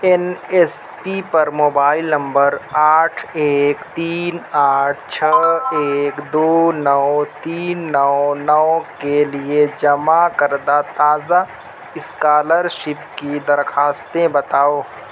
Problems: constant background noise